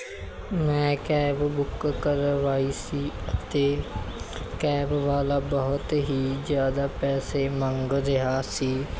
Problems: background sounds at intervals